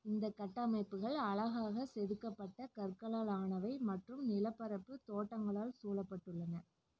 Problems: low volume